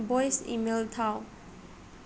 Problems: constant background noise